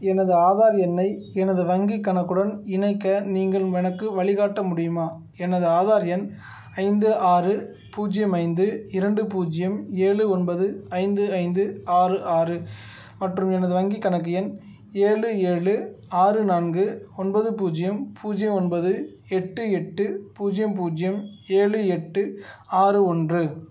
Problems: none marked